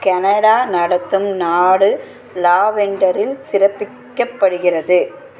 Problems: constant background noise, continuous background conversations